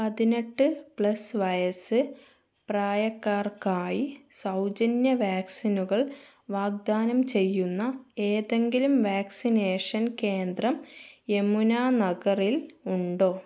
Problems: none marked